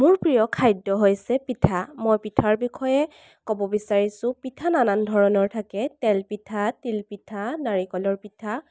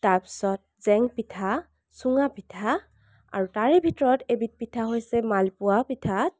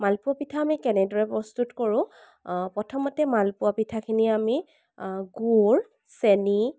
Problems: none marked